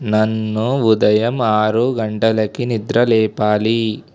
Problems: none marked